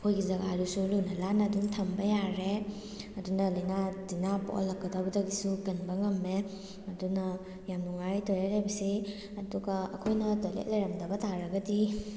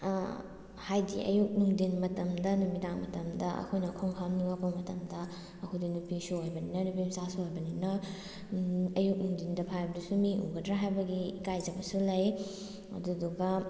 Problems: background sounds at intervals